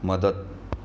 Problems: constant background noise